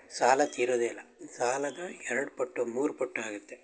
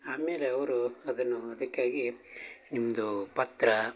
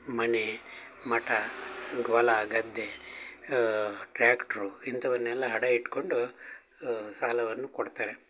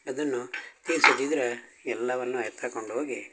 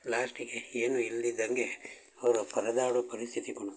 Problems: background sounds at intervals